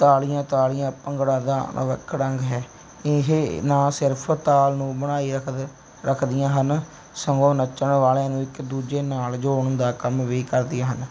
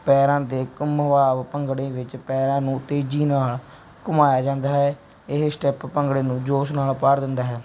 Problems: background sounds at intervals